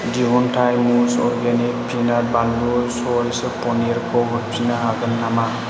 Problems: constant background noise, low volume